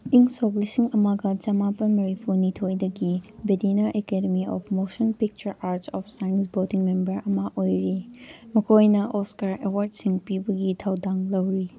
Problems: background conversations at intervals